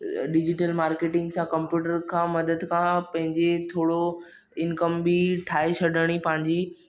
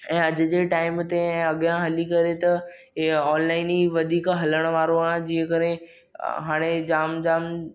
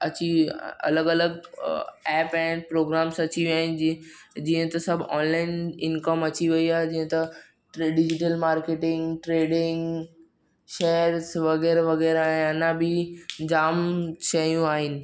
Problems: background sounds at intervals